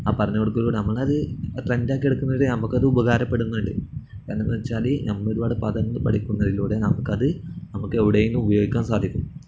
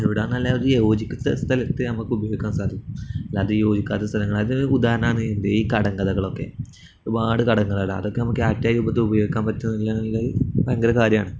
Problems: none marked